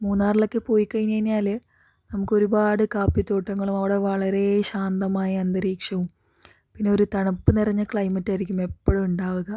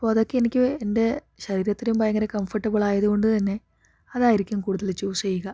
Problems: none marked